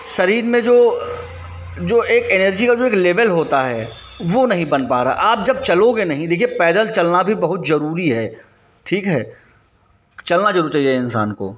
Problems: constant background noise, background conversations at intervals